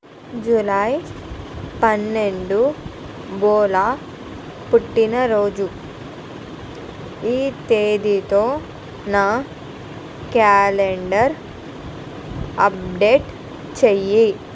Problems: none marked